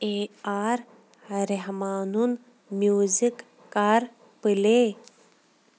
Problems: none marked